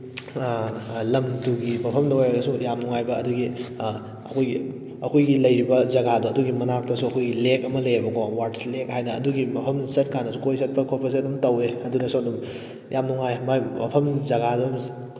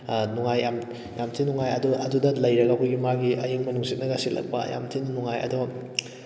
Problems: background sounds at intervals